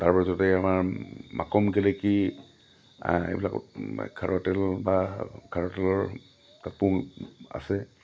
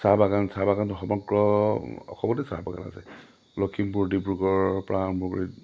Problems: none marked